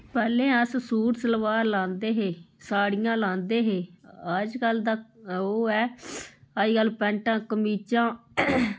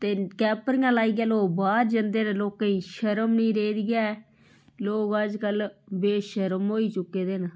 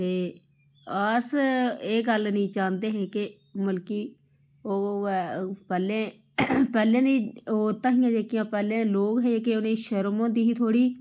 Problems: low volume